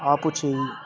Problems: none marked